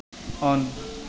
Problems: constant background noise